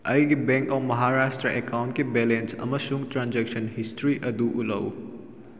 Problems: none marked